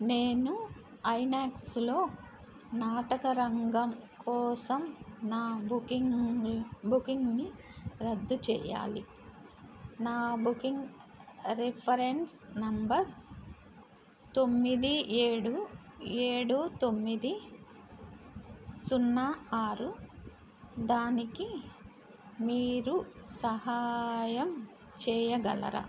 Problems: constant background noise